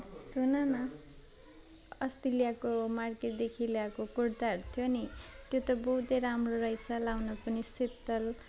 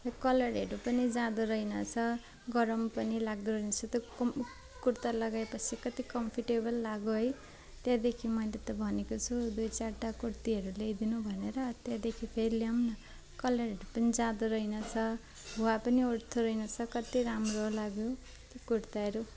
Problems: none marked